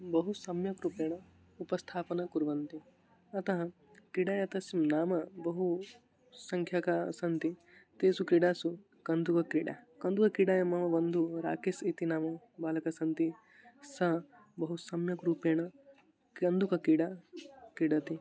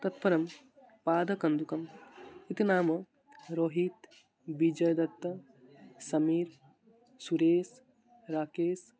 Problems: constant background noise, continuous background conversations